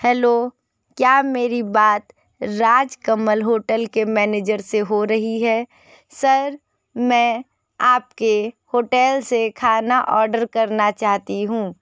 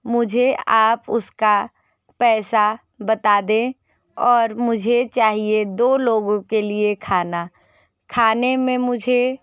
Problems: none marked